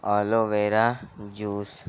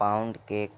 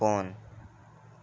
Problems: constant background noise